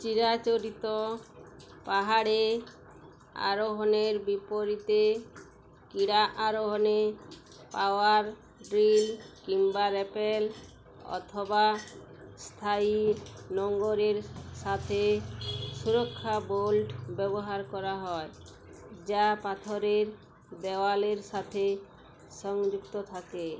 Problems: constant background noise